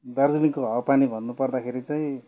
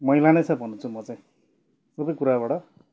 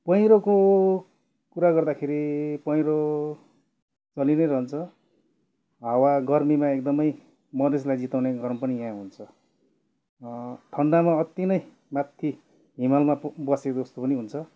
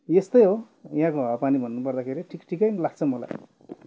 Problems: none marked